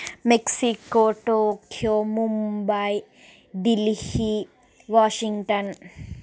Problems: background sounds at intervals